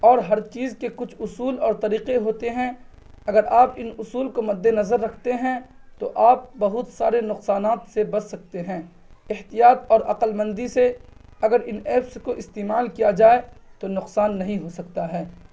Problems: none marked